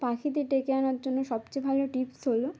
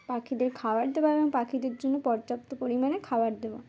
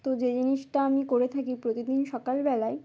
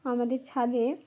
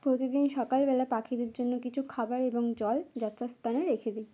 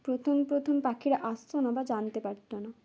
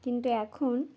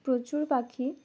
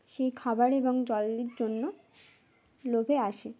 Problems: background sounds at intervals, background conversations at intervals